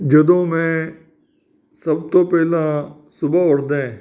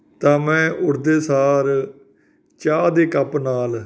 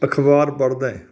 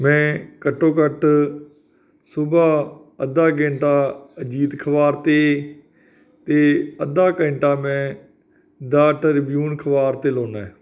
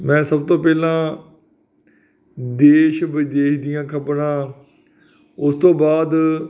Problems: none marked